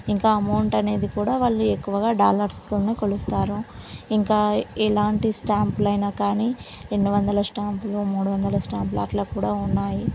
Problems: none marked